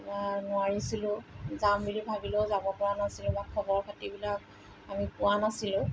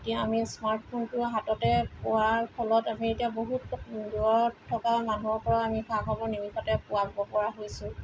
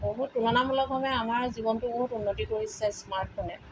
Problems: constant background noise